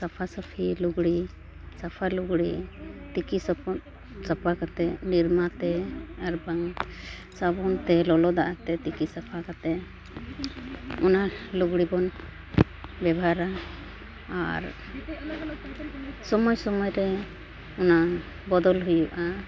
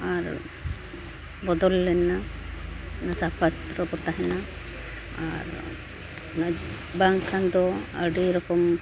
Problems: none marked